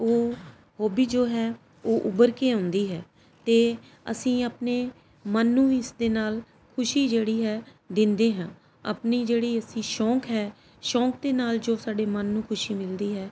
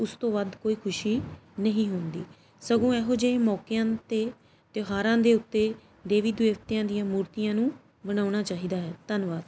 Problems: background sounds at intervals